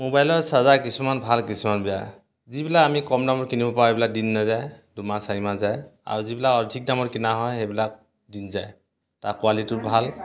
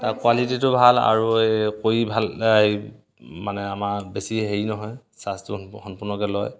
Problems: none marked